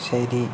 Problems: constant background noise